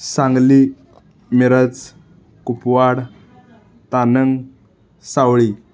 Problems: background sounds at intervals